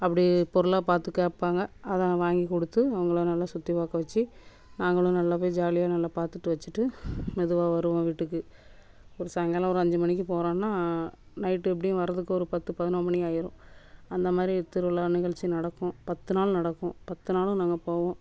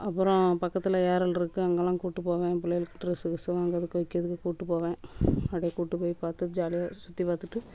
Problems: background sounds at intervals